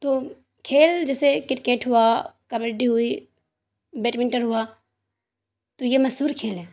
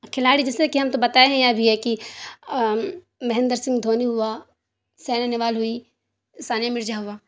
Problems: none marked